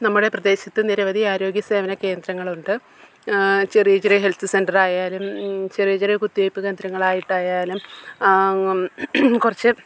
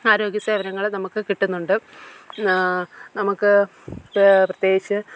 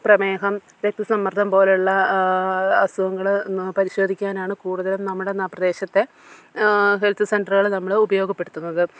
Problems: none marked